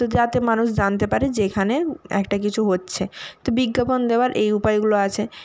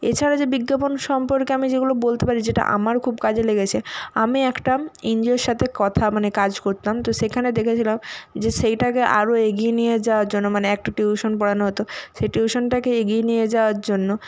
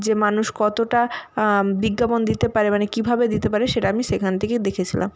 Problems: background sounds at intervals